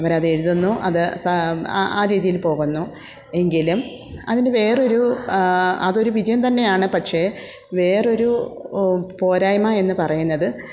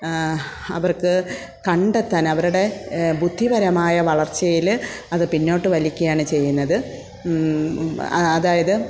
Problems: none marked